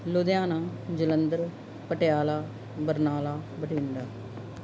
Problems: none marked